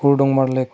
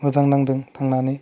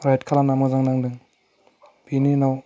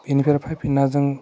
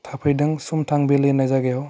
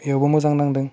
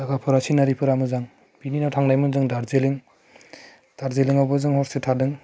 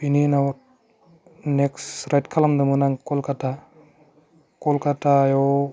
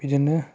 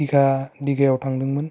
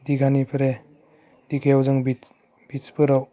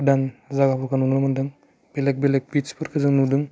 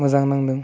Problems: low volume